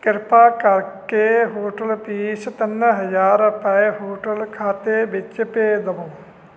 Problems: constant background noise